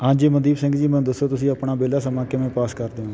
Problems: constant background noise